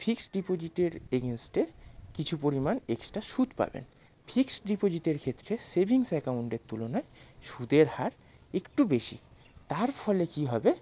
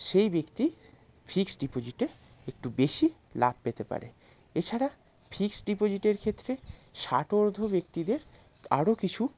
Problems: none marked